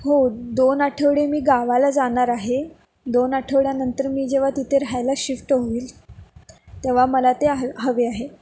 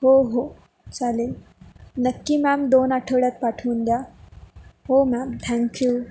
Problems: constant background noise